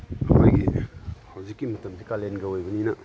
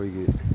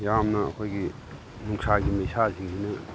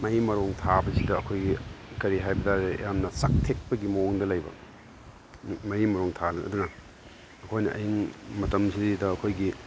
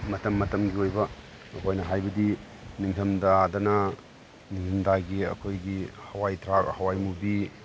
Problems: background sounds at intervals